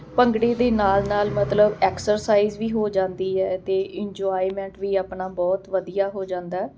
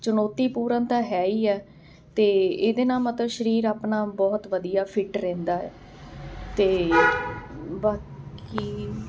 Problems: constant background noise